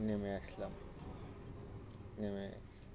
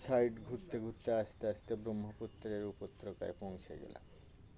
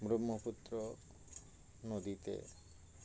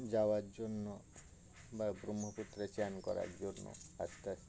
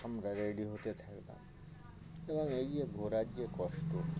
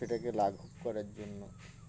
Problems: constant background noise, continuous background conversations